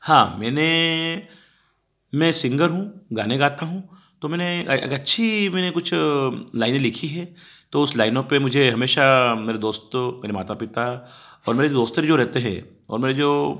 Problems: background sounds at intervals